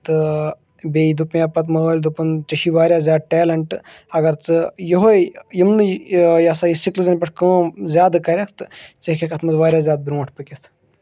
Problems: none marked